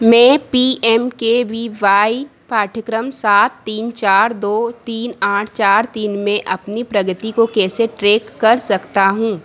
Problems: none marked